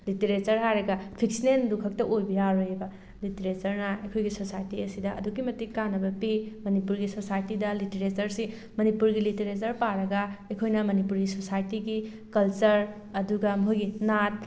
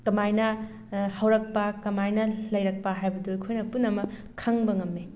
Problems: background sounds at intervals